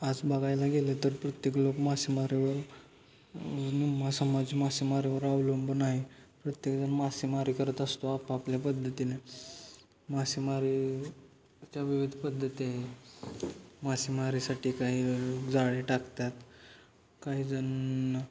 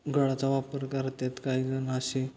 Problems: constant background noise, continuous background conversations